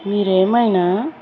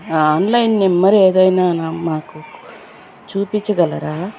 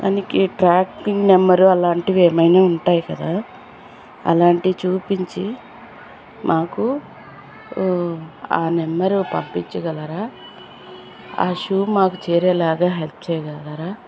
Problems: constant background noise